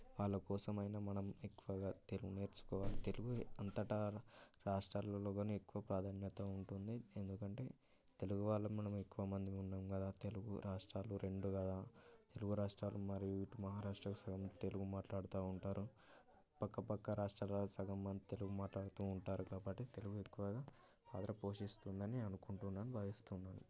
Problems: background conversations at intervals, low volume